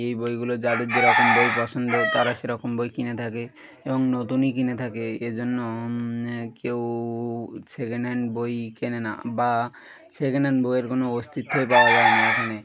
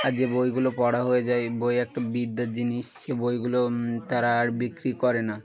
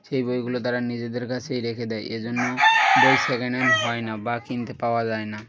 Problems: background sounds at intervals